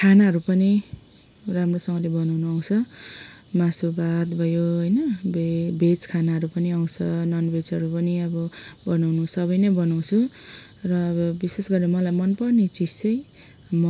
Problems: background sounds at intervals